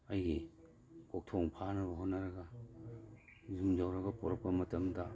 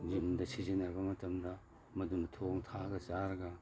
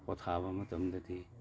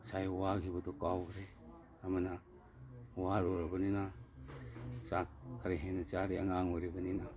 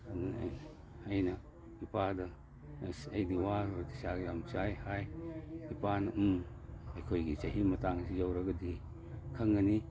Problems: background sounds at intervals